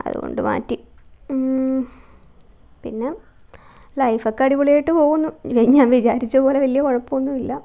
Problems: low volume